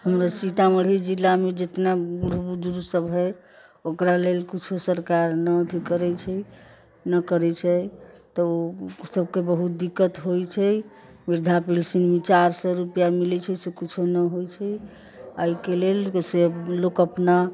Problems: constant background noise, background conversations at intervals